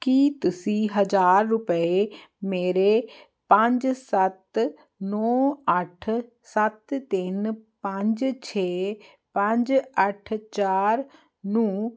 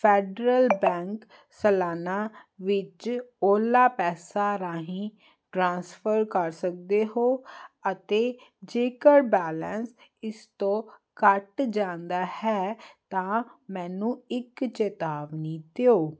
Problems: none marked